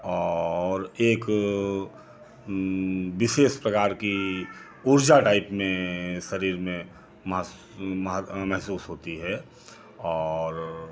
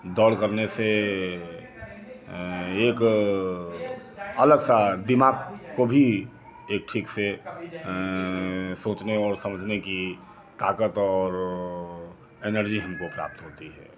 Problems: echo